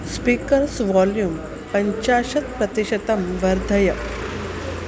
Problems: constant background noise